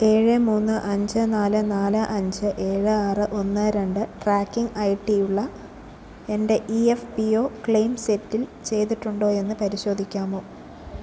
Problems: none marked